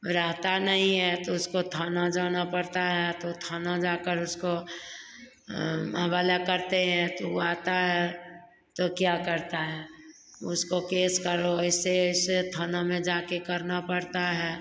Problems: none marked